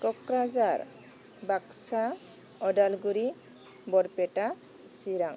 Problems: constant background noise